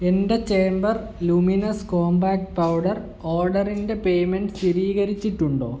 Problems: constant background noise, low volume